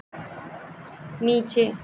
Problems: constant background noise